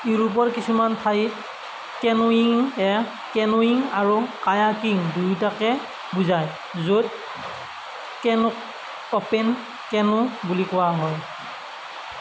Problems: constant background noise